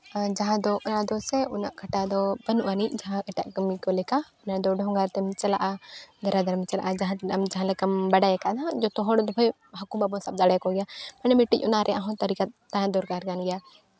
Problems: background sounds at intervals, continuous background conversations